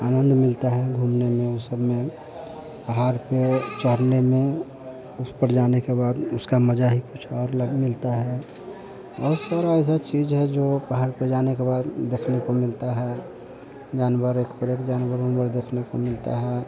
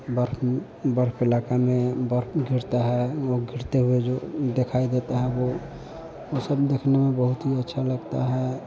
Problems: constant background noise